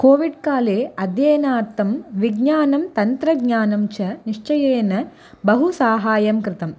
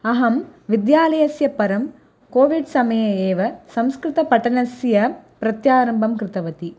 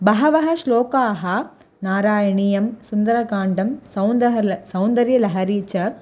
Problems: none marked